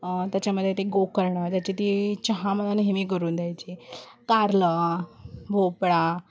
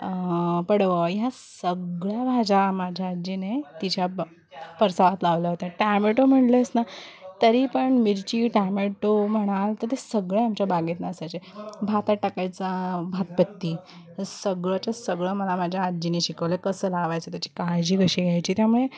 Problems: background sounds at intervals, background conversations at intervals